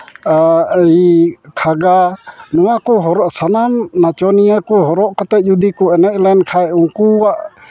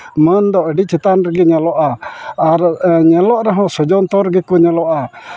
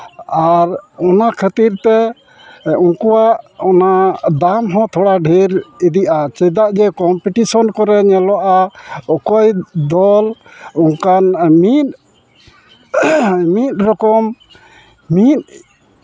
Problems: constant background noise